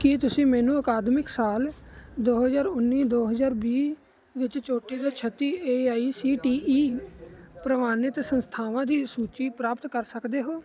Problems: none marked